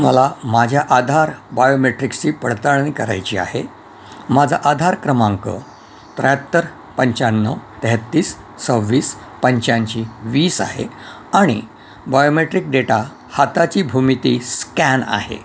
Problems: constant background noise